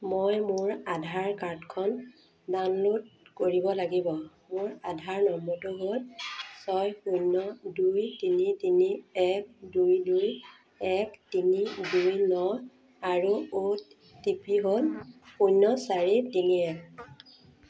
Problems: constant background noise